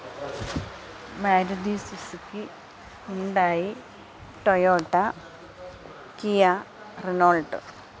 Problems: constant background noise, low volume